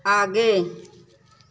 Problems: background sounds at intervals